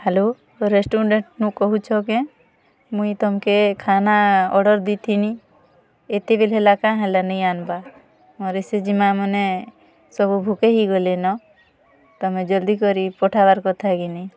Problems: none marked